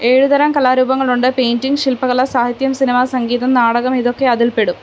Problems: none marked